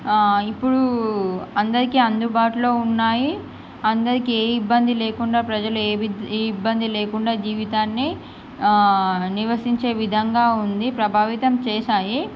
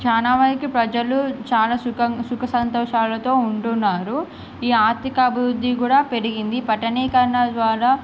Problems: none marked